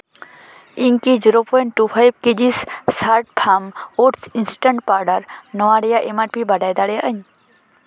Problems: constant background noise